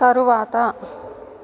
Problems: constant background noise